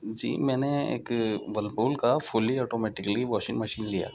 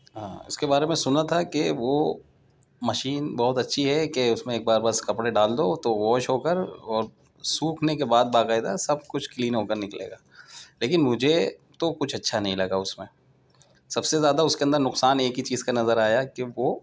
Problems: none marked